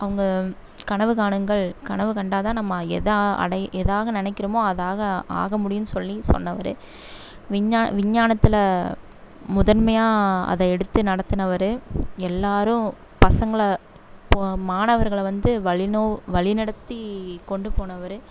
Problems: none marked